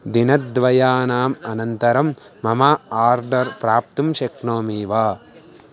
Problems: constant background noise